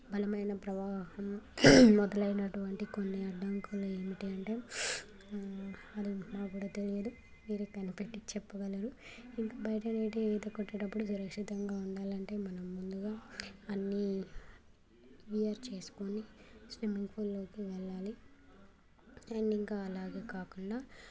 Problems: constant background noise, continuous background conversations